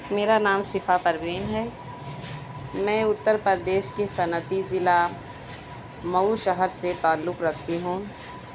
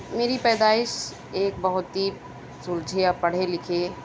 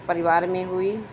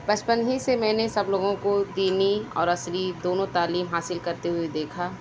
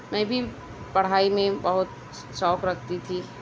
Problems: constant background noise